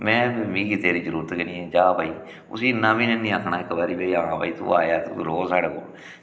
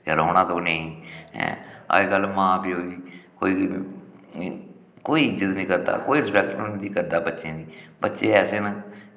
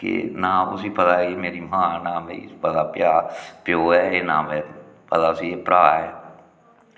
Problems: echo